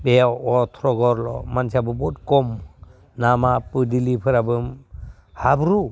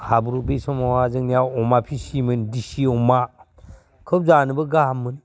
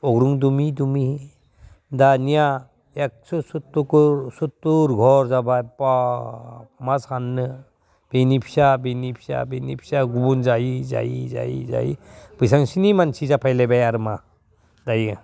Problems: low volume